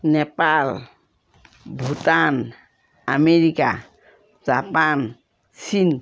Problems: background sounds at intervals